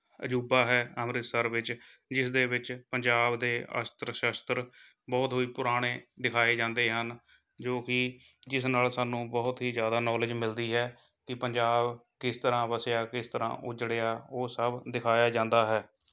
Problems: background sounds at intervals